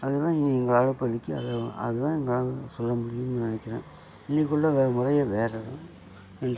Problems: constant background noise